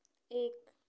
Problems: none marked